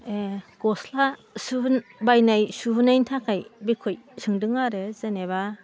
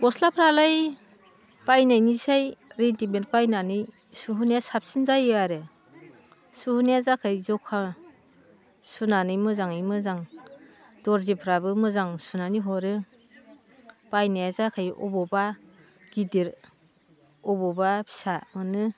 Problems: none marked